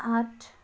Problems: background sounds at intervals